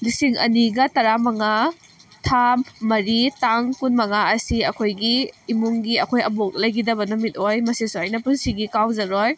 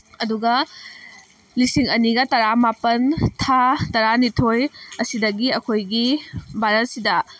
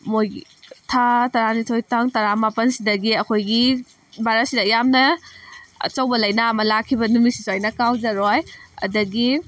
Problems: constant background noise